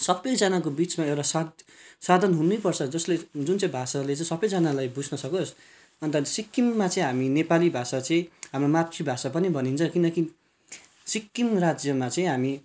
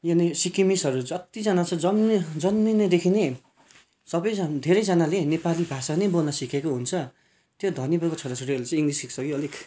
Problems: background sounds at intervals